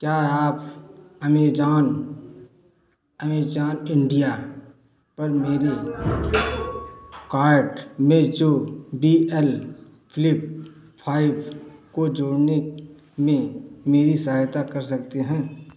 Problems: none marked